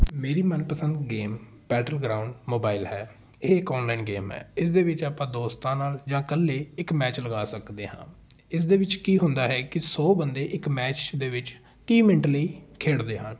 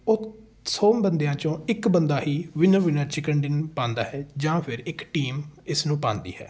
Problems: background sounds at intervals, background conversations at intervals